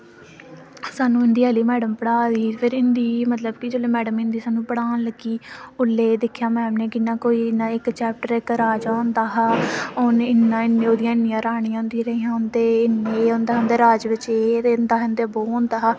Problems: constant background noise